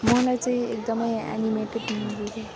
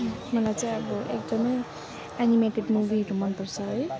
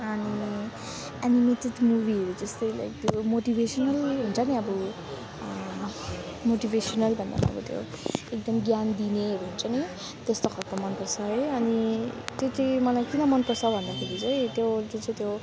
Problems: background sounds at intervals